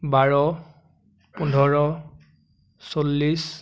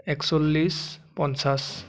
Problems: constant background noise